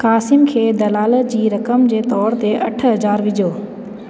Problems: constant background noise, echo